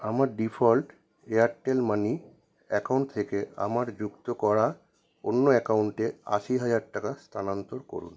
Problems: none marked